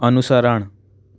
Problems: none marked